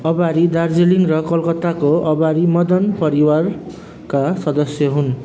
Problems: background sounds at intervals